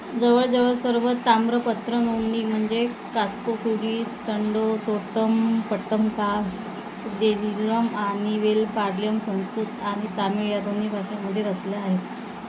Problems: constant background noise